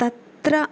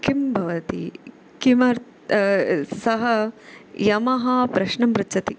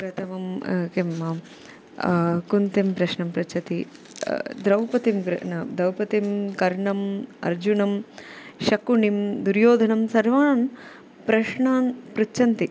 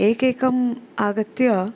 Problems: none marked